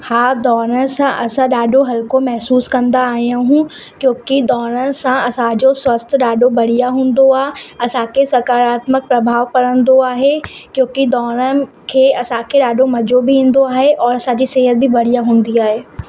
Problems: constant background noise